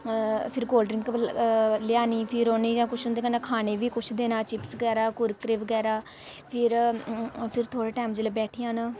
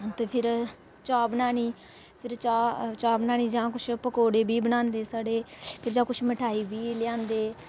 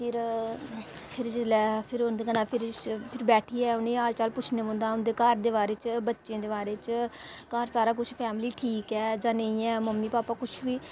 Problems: constant background noise